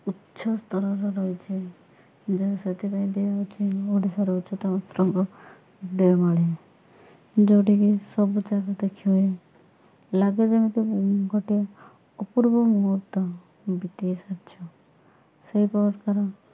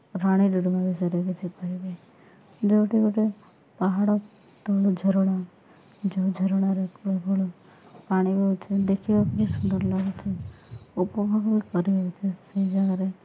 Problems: background sounds at intervals